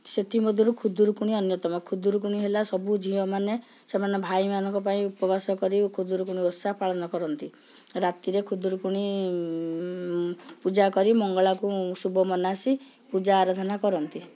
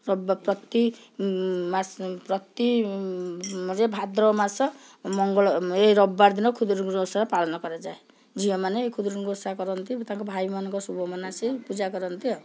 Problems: none marked